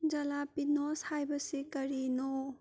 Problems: low volume